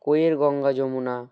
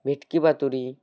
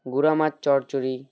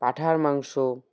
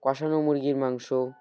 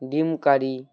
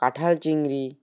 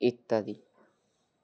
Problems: background sounds at intervals